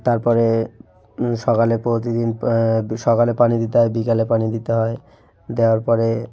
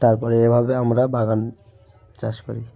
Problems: background sounds at intervals